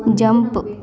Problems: background sounds at intervals